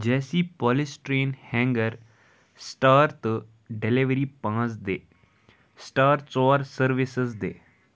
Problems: background sounds at intervals